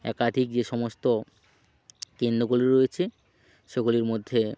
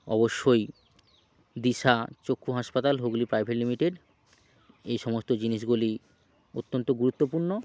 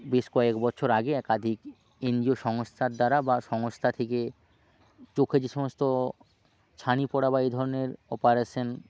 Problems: constant background noise, background conversations at intervals